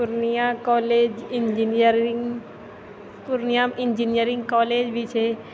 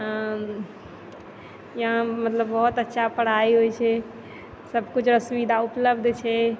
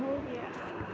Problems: none marked